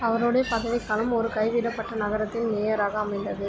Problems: constant background noise, continuous background conversations